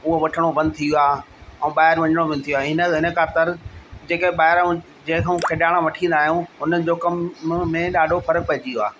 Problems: constant background noise